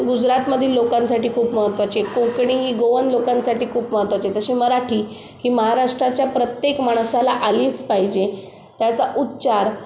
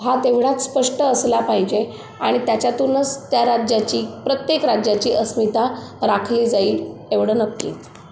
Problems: none marked